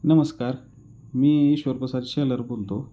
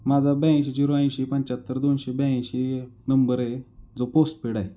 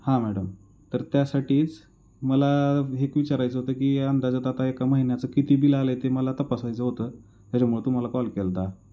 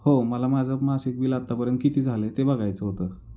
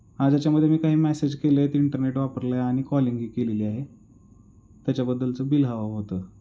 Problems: background sounds at intervals